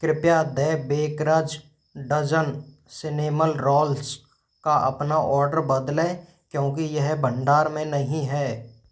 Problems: background sounds at intervals